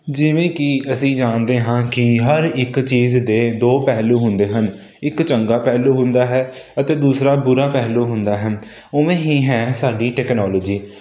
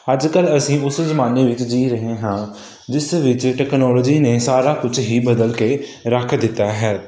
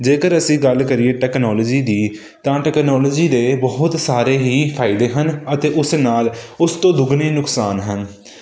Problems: none marked